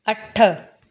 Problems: constant background noise, echo